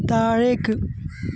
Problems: constant background noise